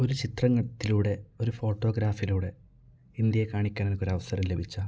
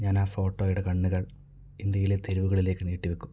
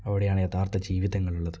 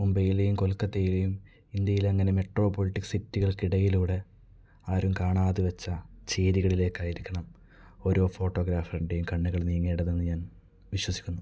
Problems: low volume